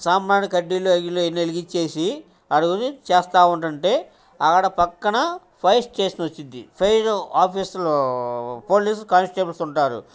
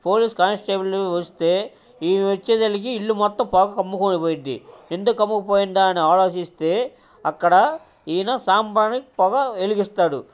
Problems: background sounds at intervals, background conversations at intervals